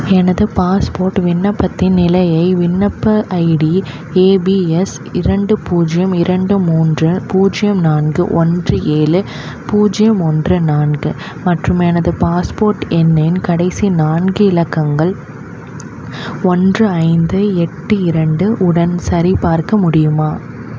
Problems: constant background noise